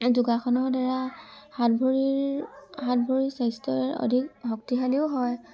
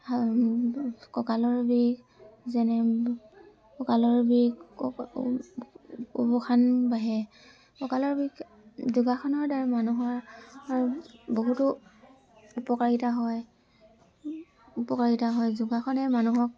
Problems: constant background noise, background conversations at intervals